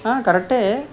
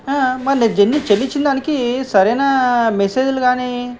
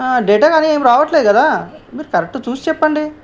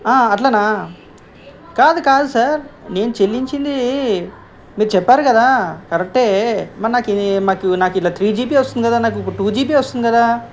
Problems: background conversations at intervals